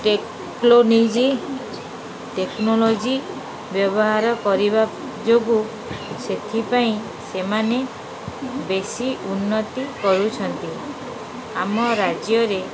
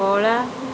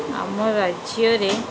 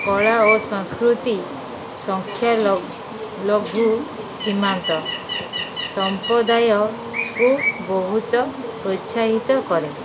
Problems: constant background noise